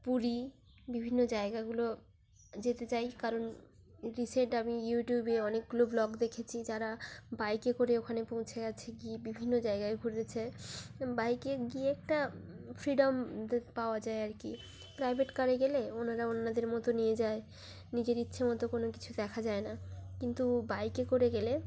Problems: background sounds at intervals